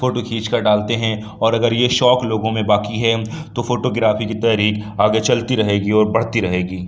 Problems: none marked